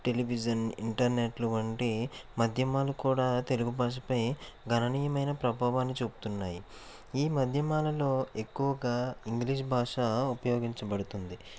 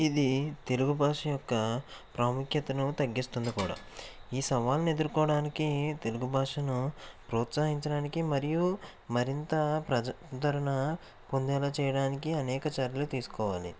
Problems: constant background noise